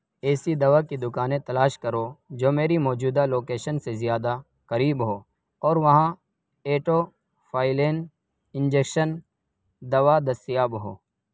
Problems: none marked